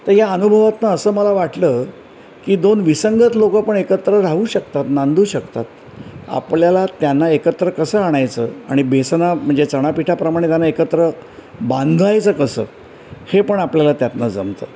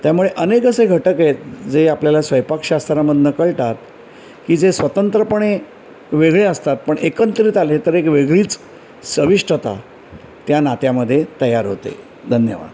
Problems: none marked